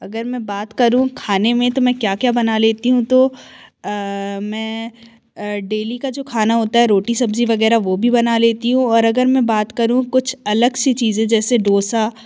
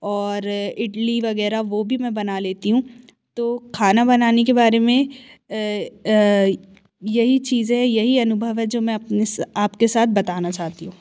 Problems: constant background noise